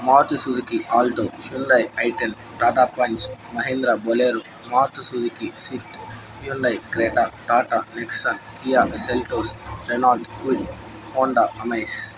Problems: background sounds at intervals